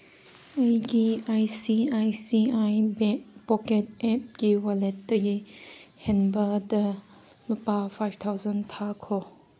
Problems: none marked